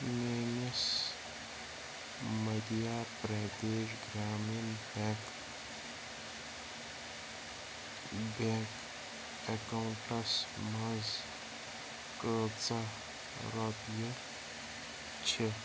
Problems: constant background noise, low volume